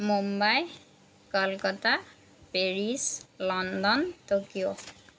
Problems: none marked